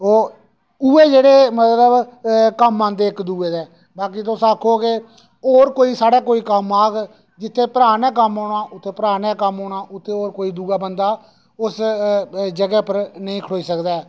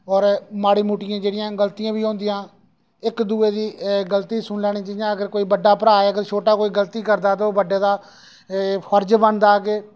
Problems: none marked